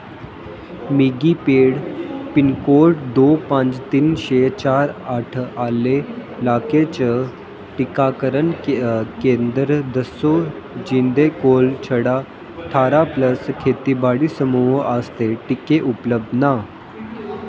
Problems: constant background noise, echo